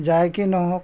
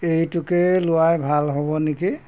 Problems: background sounds at intervals